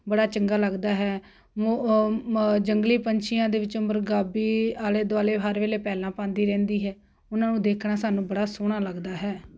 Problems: constant background noise